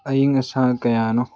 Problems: none marked